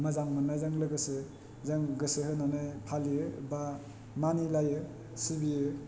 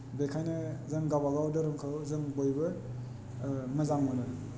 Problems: none marked